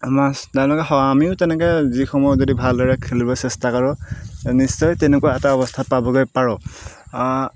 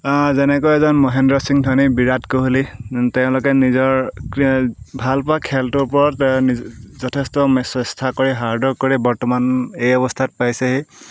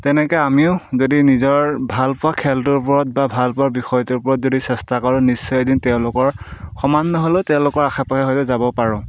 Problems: background sounds at intervals